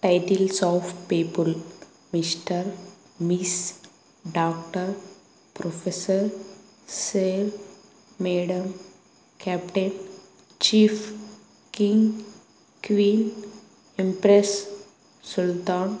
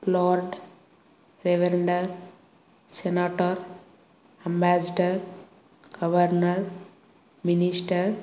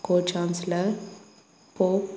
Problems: none marked